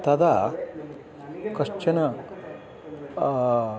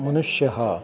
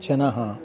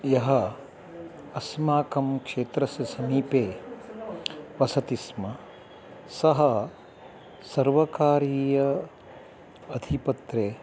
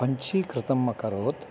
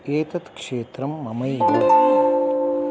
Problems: none marked